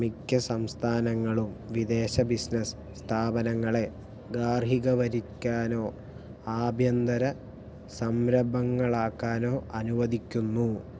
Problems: low volume